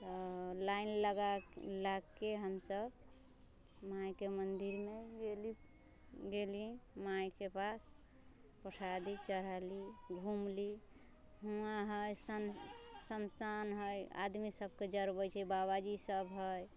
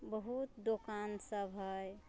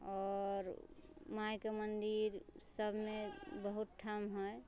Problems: background sounds at intervals